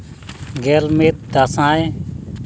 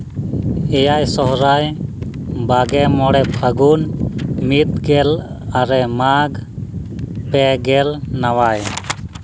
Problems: constant background noise